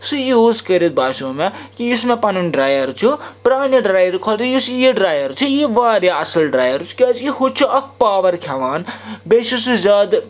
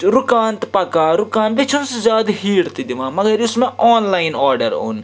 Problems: background sounds at intervals